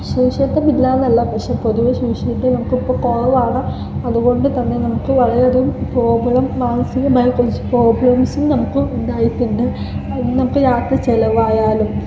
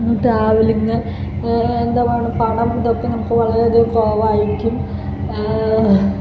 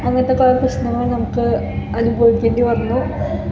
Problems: constant background noise, low volume